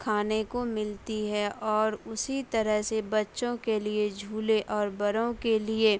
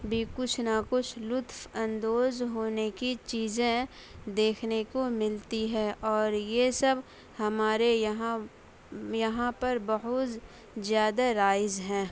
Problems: background sounds at intervals